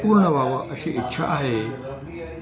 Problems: background conversations at intervals